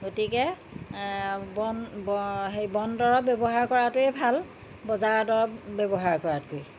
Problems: constant background noise